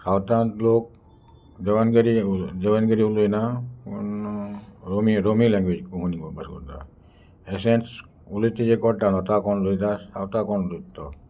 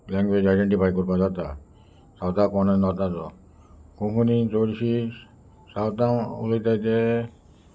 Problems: constant background noise, background conversations at intervals